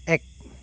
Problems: constant background noise